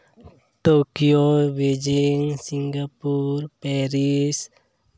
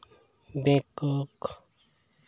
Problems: background sounds at intervals